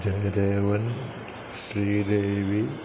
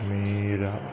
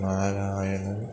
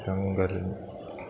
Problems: constant background noise